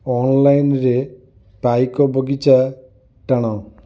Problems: none marked